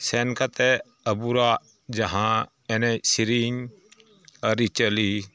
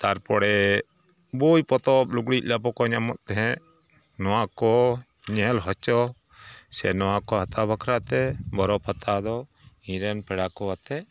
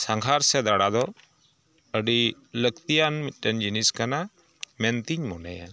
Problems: none marked